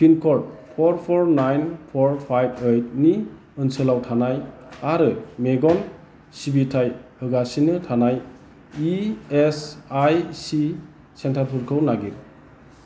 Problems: constant background noise